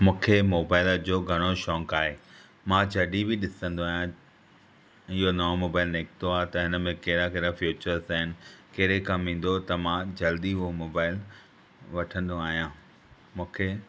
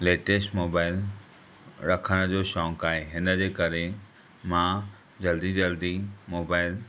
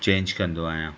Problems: constant background noise